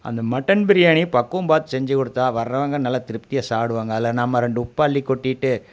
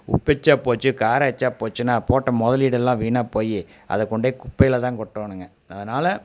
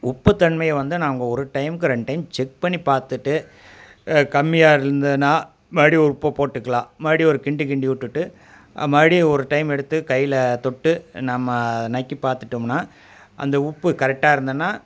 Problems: none marked